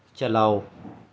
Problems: constant background noise, low volume